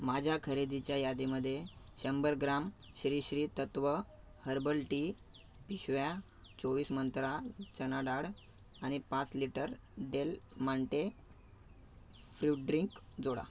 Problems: background sounds at intervals